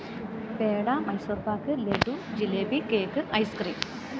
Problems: constant background noise